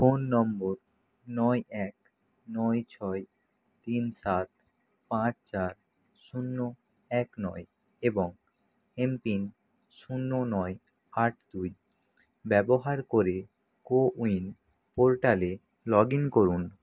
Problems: none marked